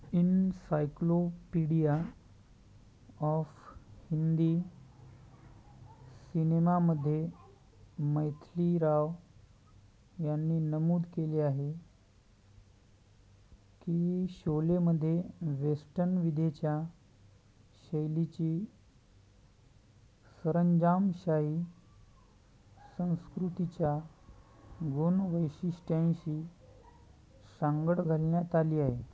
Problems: background sounds at intervals